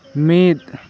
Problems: constant background noise